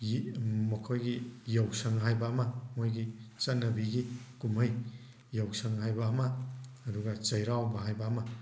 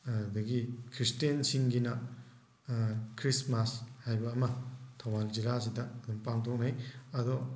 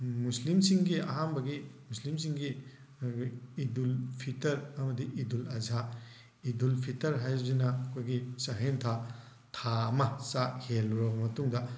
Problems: background sounds at intervals